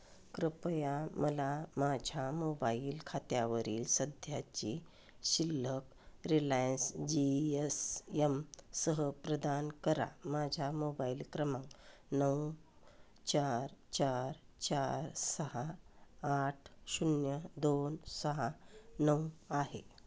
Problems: none marked